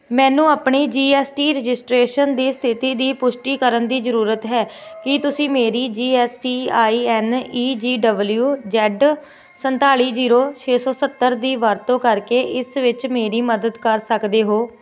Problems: none marked